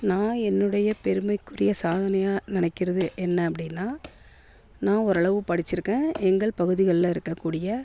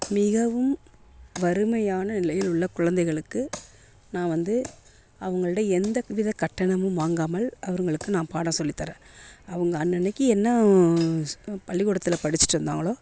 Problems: continuous background conversations